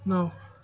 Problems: background sounds at intervals